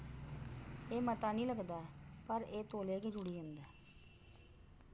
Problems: background sounds at intervals, low volume